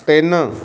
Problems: constant background noise